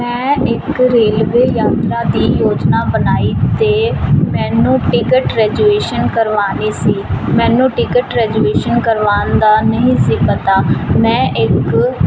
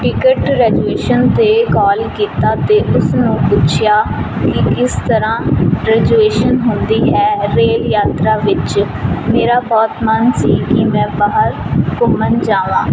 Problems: constant background noise